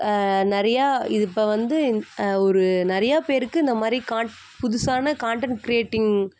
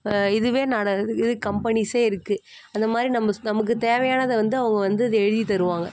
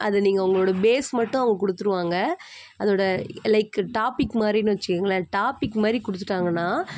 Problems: constant background noise